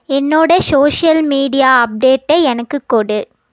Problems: none marked